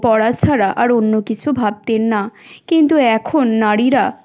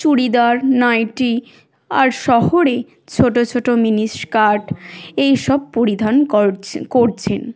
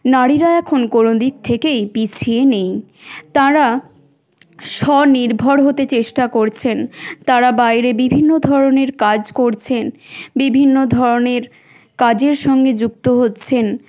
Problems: none marked